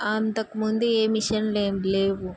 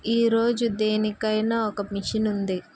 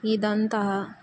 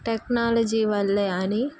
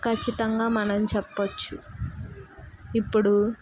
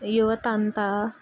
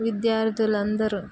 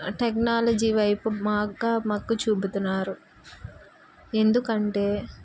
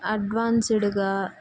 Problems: none marked